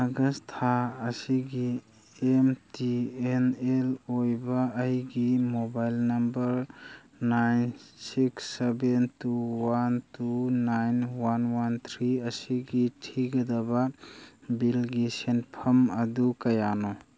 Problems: none marked